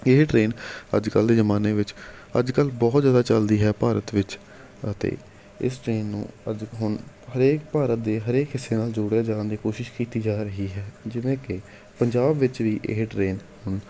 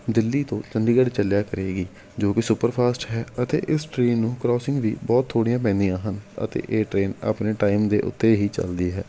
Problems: background sounds at intervals